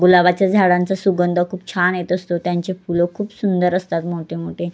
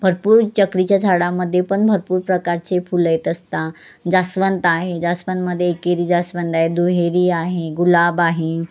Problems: constant background noise